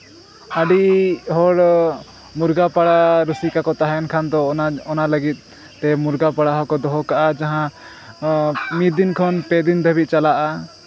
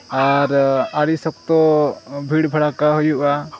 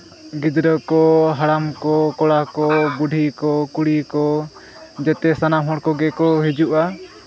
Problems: constant background noise, continuous background conversations